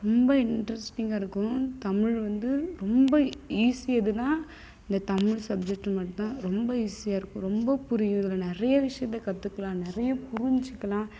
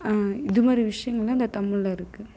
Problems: constant background noise